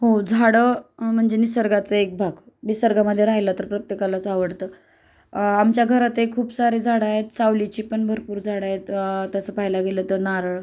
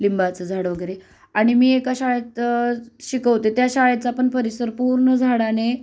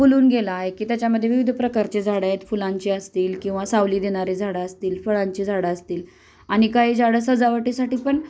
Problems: none marked